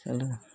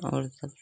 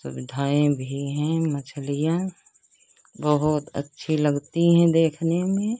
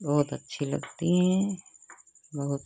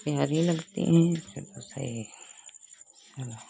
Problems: constant background noise